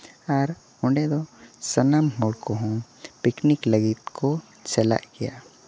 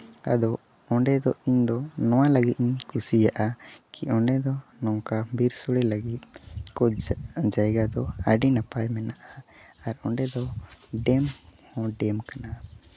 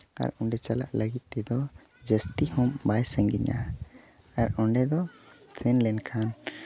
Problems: background sounds at intervals, background conversations at intervals